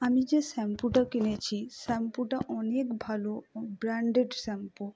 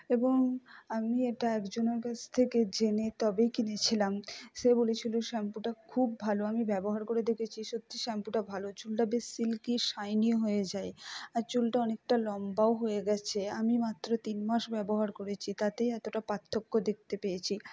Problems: low volume